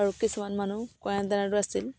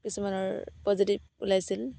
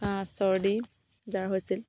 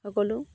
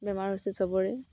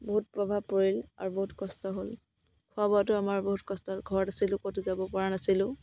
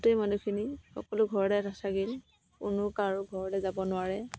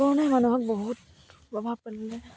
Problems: none marked